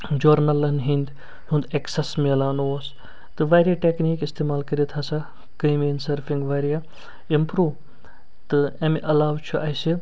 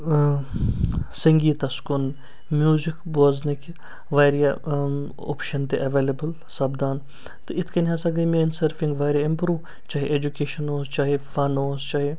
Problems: none marked